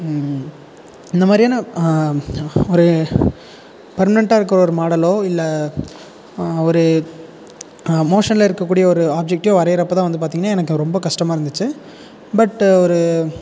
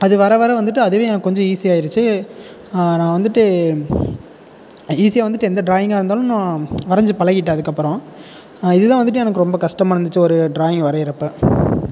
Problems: constant background noise